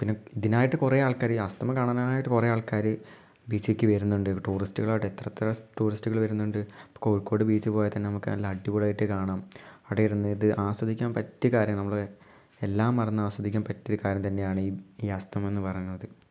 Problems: low volume